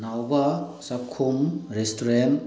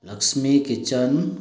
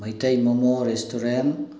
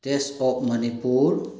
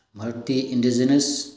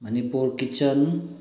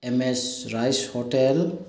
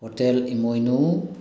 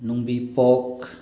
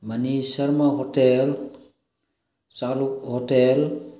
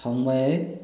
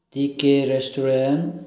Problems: background sounds at intervals